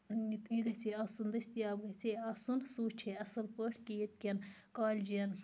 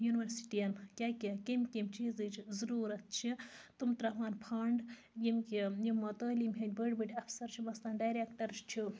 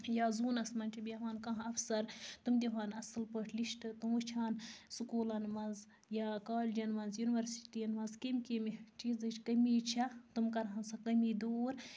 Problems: none marked